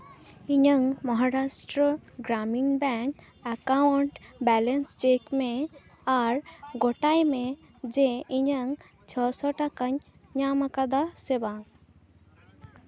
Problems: none marked